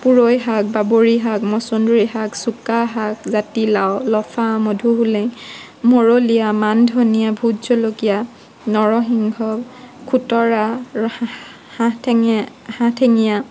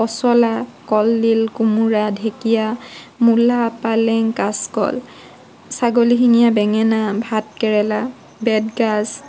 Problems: background sounds at intervals